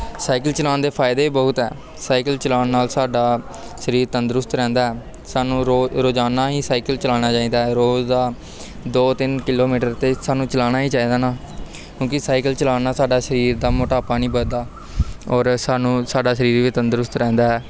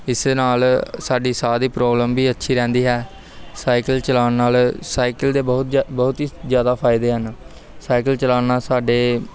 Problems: constant background noise, continuous background conversations